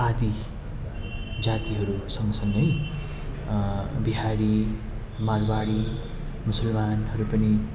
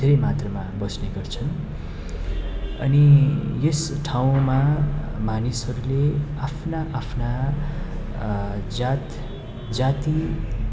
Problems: constant background noise